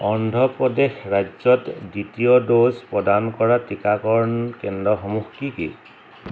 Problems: none marked